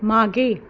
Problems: background sounds at intervals